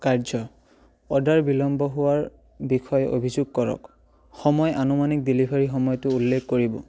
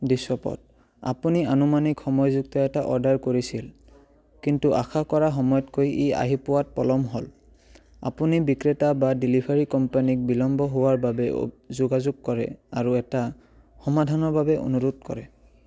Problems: none marked